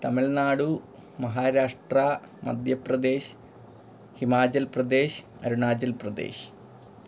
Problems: background sounds at intervals